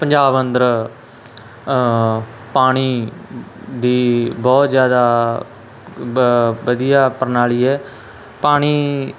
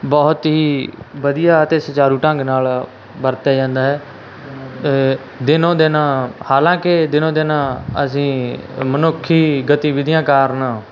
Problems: constant background noise